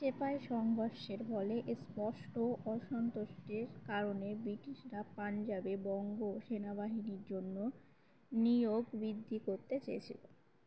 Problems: none marked